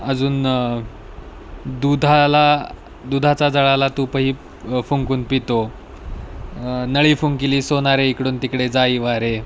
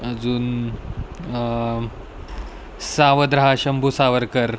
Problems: none marked